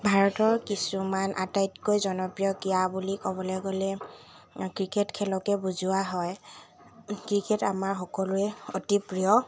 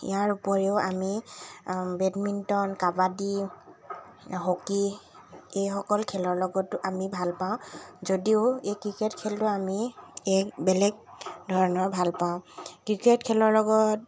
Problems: constant background noise